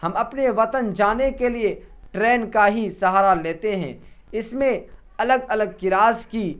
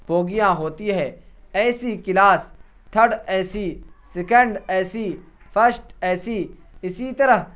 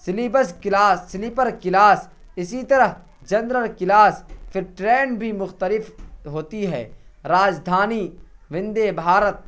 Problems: constant background noise